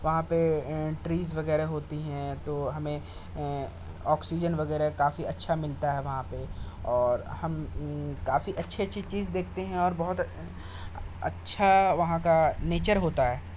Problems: constant background noise